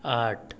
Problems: none marked